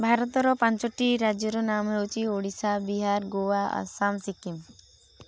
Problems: none marked